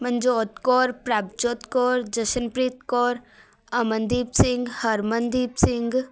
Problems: background sounds at intervals, background conversations at intervals